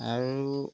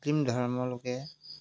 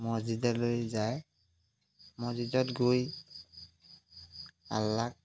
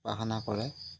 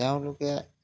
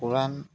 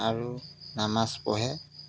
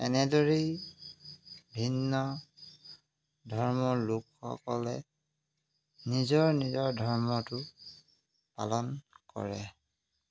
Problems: background sounds at intervals